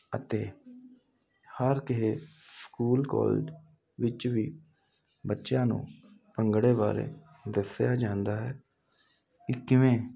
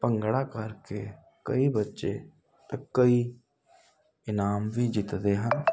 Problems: constant background noise